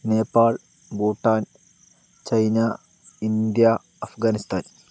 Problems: constant background noise